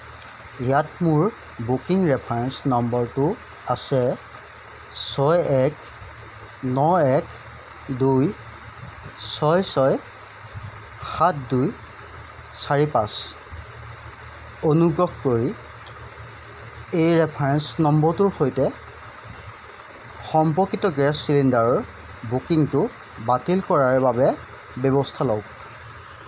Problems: none marked